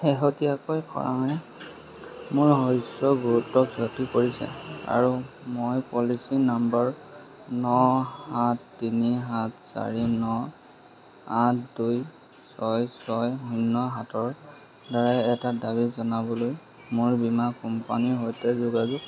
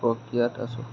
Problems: constant background noise, background conversations at intervals